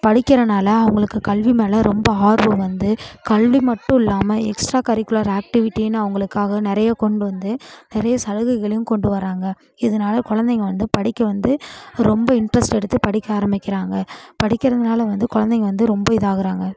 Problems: continuous background conversations